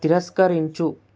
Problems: none marked